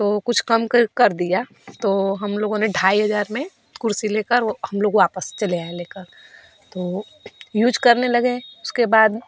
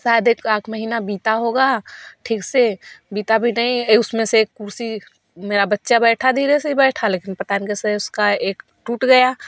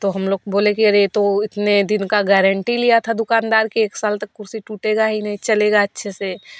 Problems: none marked